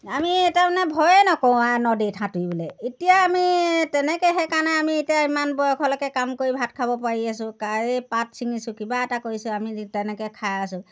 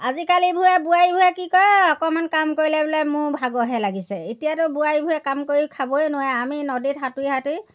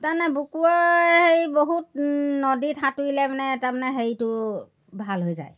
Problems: none marked